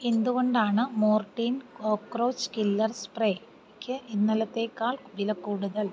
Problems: low volume